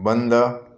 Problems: none marked